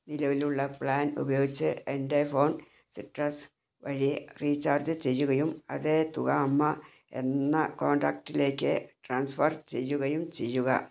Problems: none marked